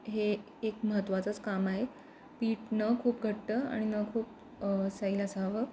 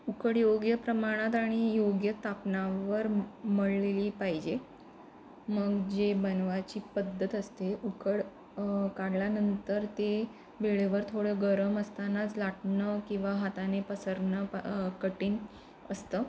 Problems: none marked